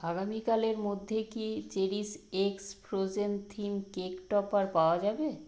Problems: none marked